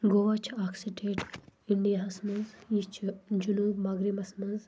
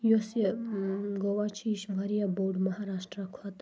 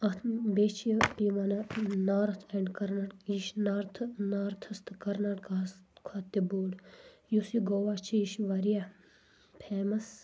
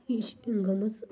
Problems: low volume